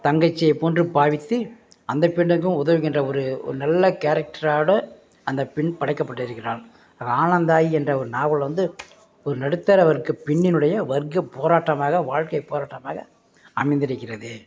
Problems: none marked